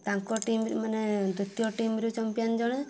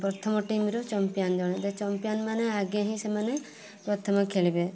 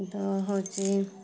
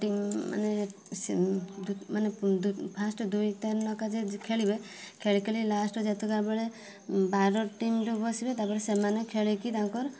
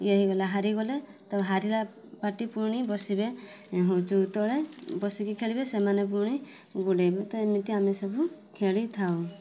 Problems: constant background noise, continuous background conversations